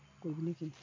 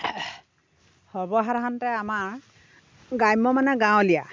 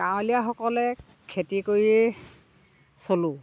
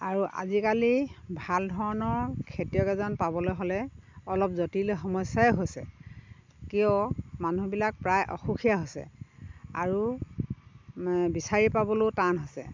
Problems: constant background noise, background conversations at intervals